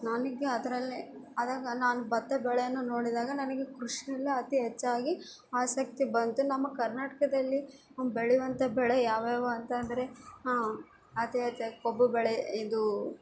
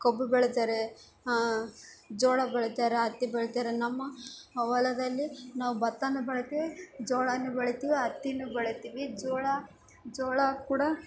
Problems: background sounds at intervals